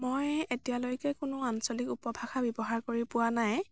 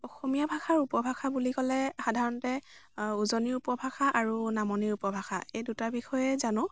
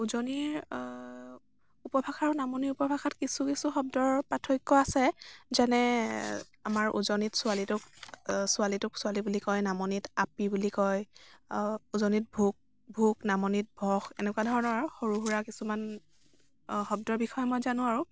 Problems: none marked